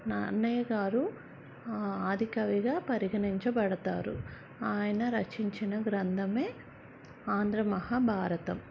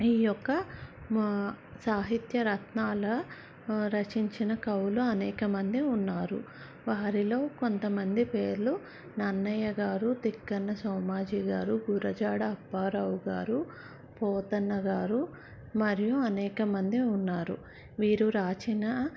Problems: none marked